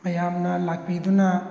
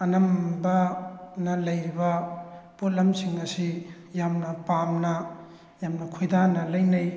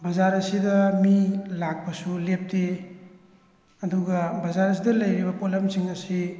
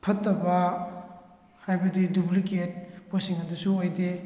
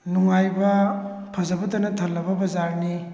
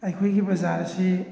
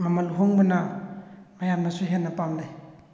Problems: background sounds at intervals